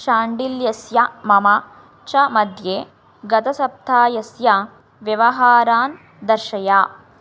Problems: none marked